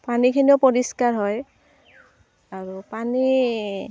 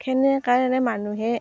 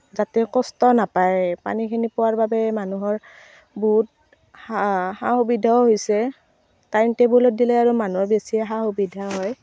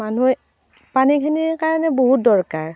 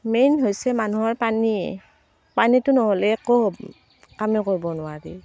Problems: constant background noise